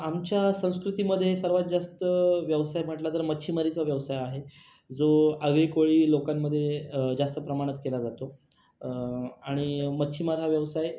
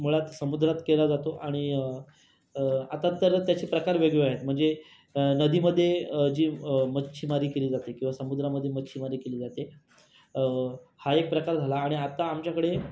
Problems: constant background noise